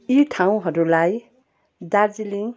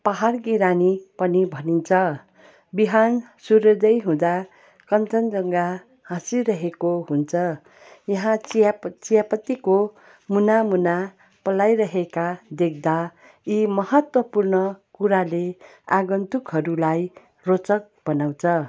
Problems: background sounds at intervals